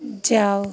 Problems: constant background noise, low volume